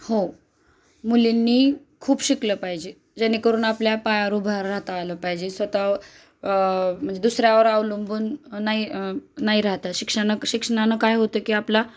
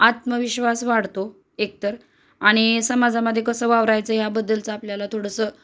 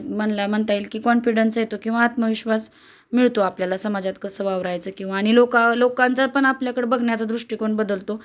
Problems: constant background noise